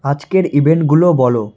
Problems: background sounds at intervals